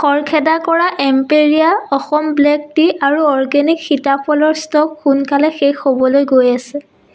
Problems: none marked